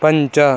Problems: none marked